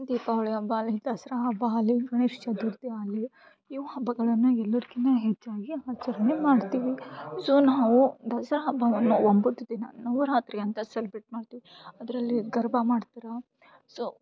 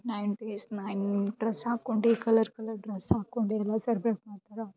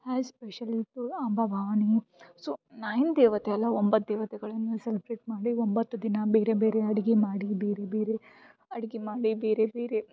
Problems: background sounds at intervals